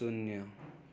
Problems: continuous background conversations